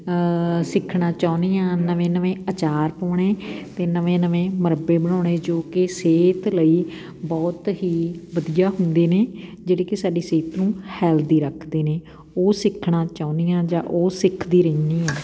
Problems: background sounds at intervals